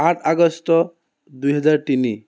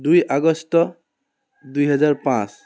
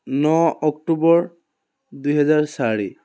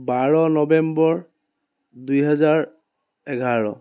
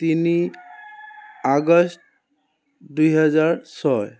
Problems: background sounds at intervals